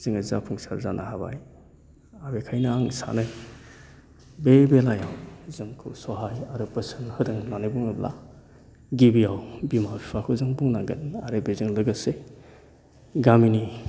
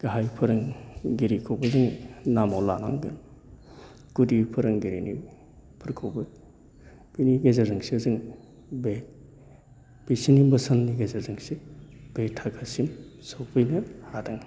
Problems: constant background noise